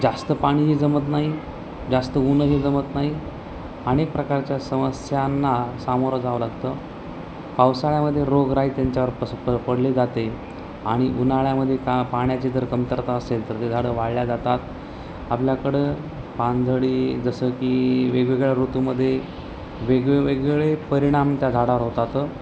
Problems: constant background noise, continuous background conversations